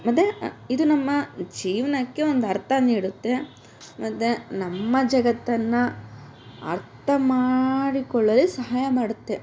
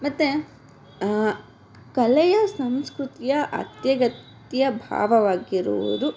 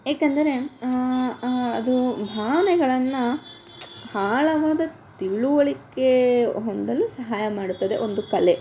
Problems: none marked